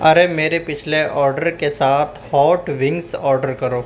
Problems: constant background noise